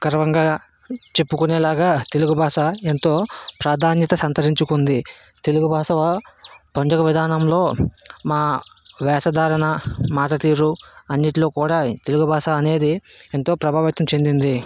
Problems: constant background noise